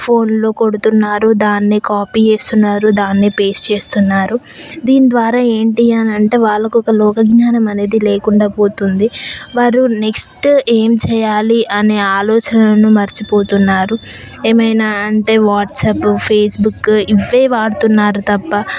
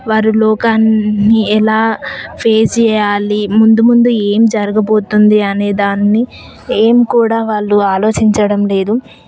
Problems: constant background noise, background conversations at intervals